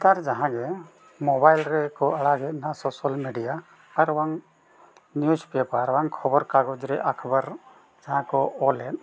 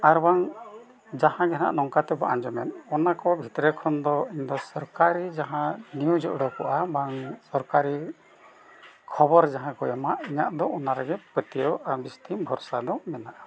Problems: background sounds at intervals